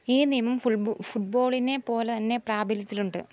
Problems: background sounds at intervals